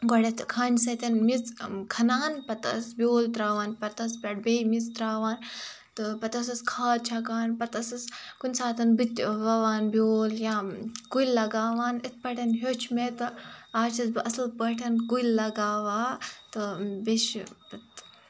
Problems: none marked